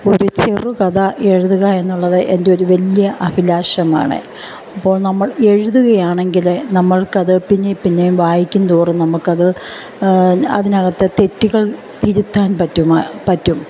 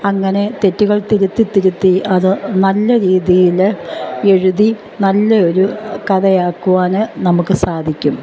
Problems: none marked